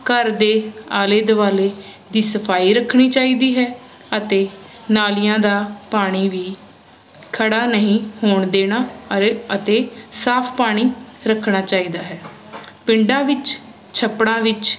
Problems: constant background noise